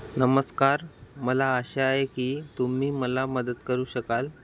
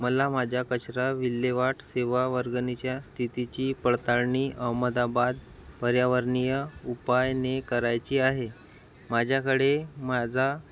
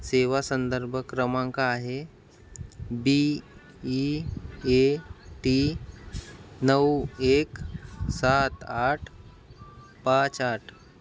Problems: none marked